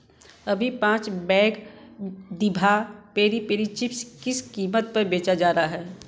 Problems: background sounds at intervals